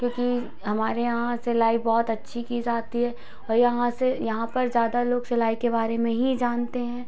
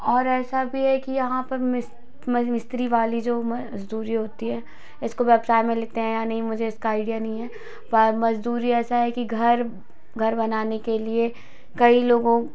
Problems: constant background noise